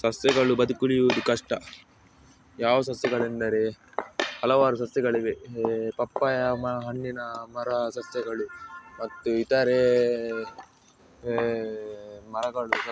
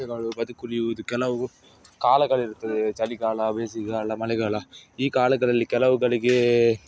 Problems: background sounds at intervals